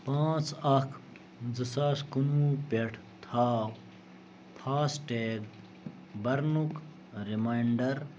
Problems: none marked